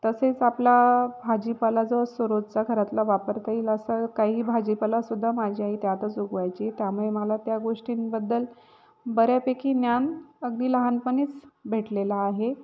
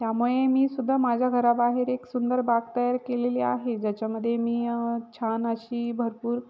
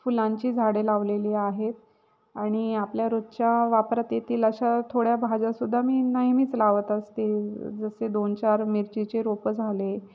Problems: background sounds at intervals